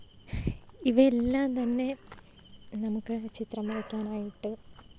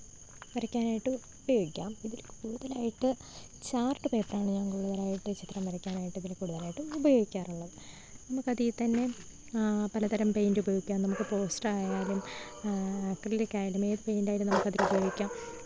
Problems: background sounds at intervals